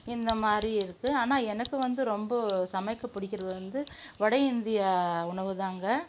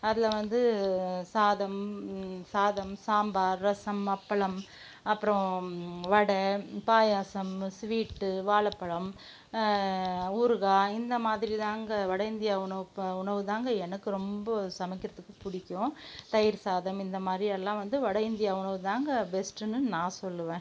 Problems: background sounds at intervals